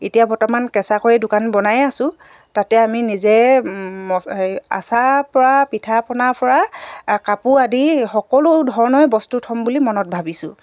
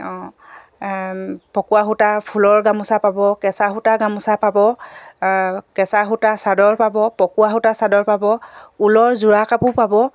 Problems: background sounds at intervals